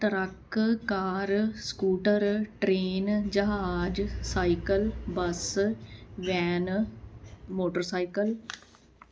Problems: none marked